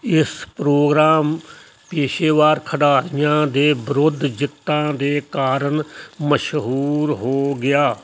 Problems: none marked